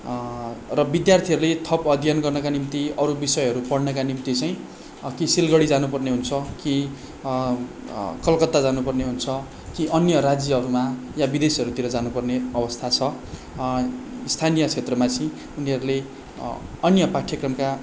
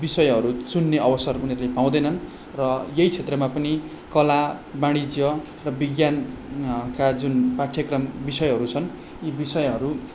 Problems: none marked